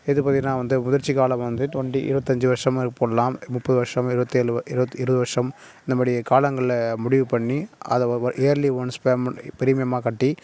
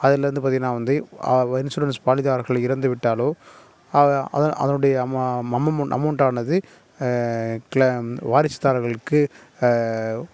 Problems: none marked